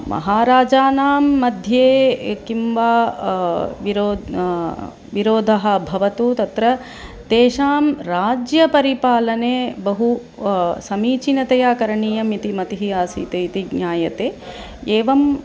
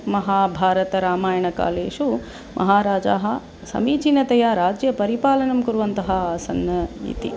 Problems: none marked